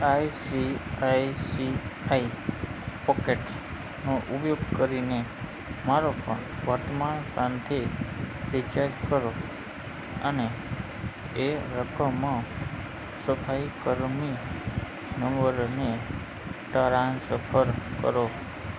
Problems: constant background noise